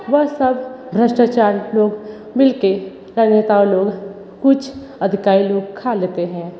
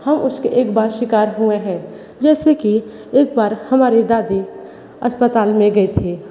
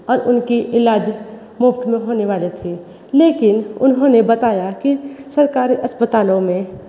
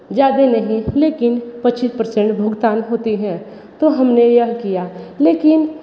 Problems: constant background noise